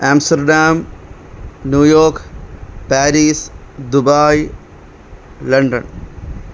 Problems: constant background noise